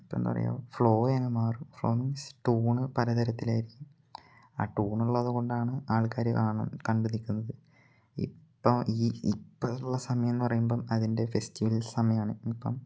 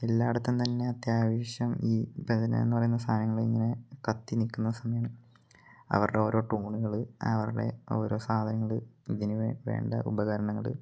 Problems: low volume